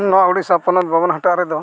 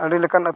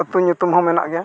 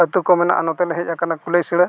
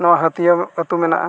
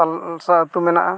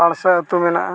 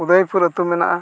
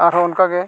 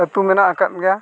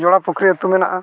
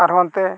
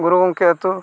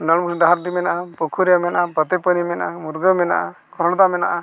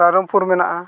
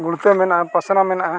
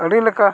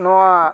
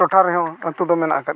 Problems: continuous background conversations